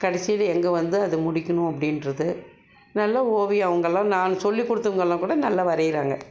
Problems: background sounds at intervals